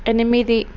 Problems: constant background noise